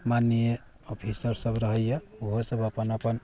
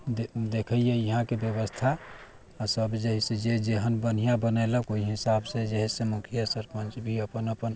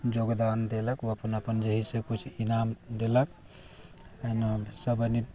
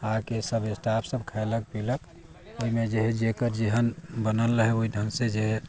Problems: background sounds at intervals